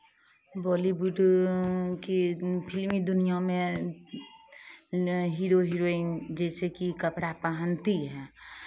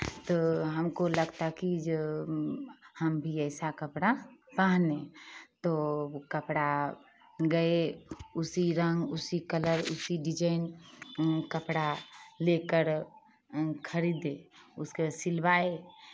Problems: constant background noise, background conversations at intervals